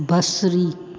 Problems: constant background noise, echo